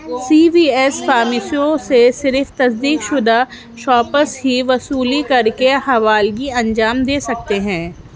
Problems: constant background noise